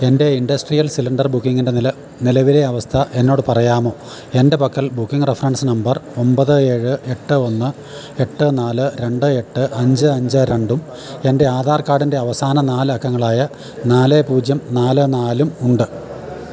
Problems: none marked